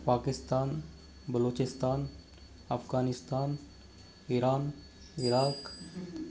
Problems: background sounds at intervals